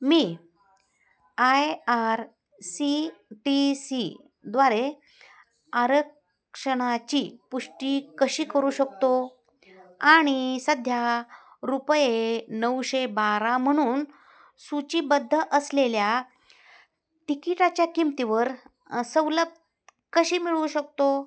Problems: background sounds at intervals, background conversations at intervals